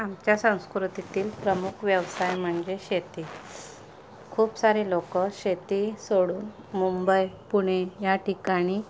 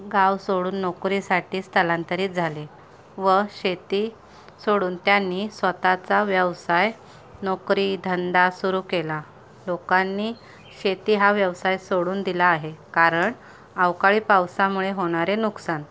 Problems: background sounds at intervals, background conversations at intervals